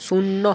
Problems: constant background noise